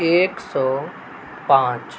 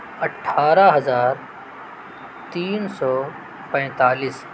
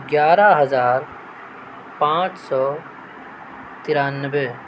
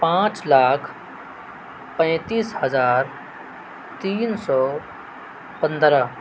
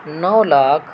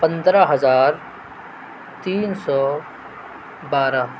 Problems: constant background noise